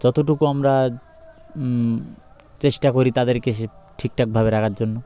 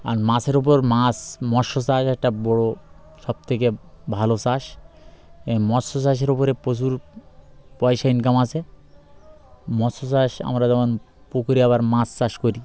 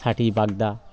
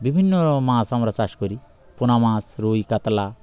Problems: background sounds at intervals